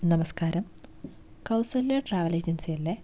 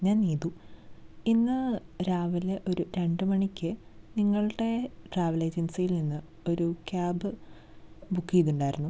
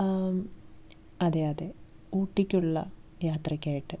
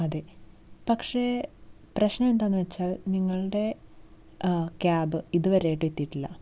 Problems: none marked